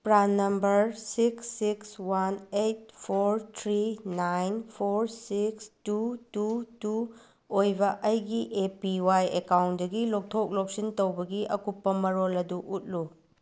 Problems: none marked